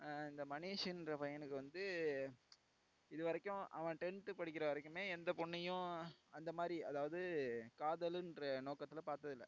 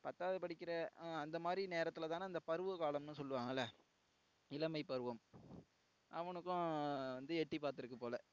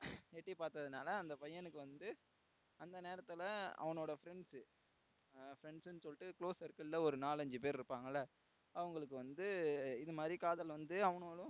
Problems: background sounds at intervals, low volume